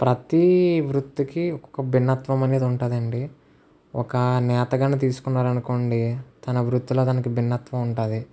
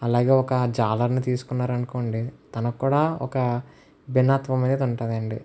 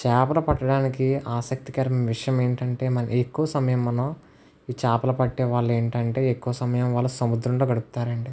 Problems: constant background noise